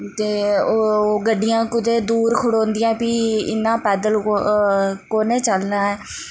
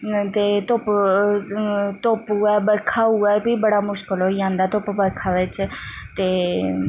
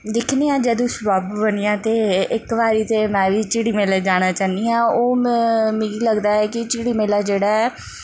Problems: constant background noise